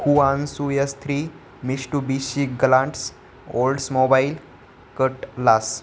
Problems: background sounds at intervals